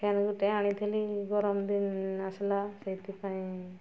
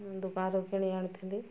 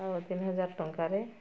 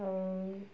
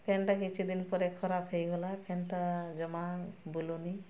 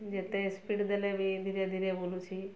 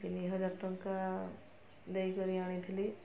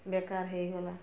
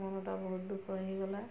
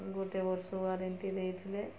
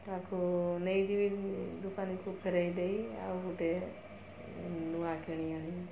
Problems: constant background noise, continuous background conversations